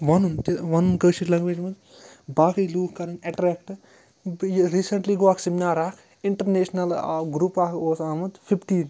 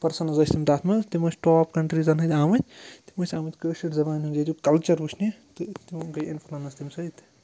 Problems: background sounds at intervals